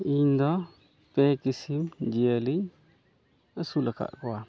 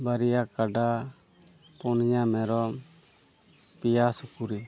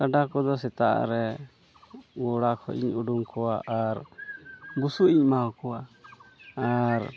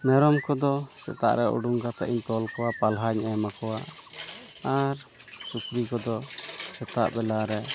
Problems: constant background noise, background conversations at intervals